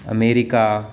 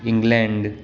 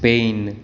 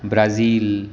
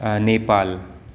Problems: constant background noise